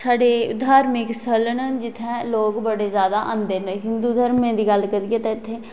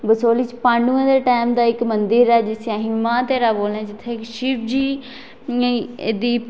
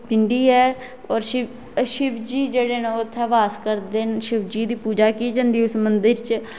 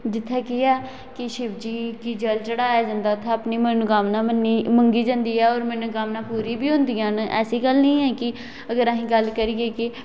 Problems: constant background noise, echo